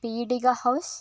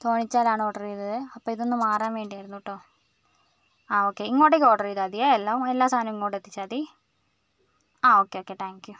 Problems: none marked